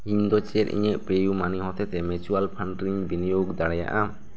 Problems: background conversations at intervals